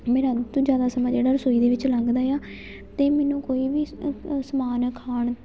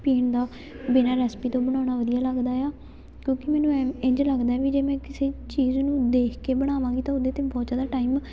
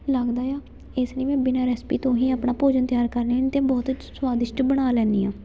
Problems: continuous background conversations